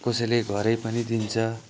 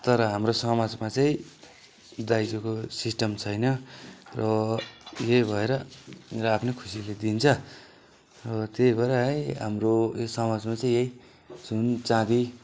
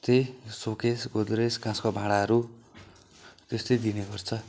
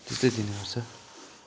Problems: background sounds at intervals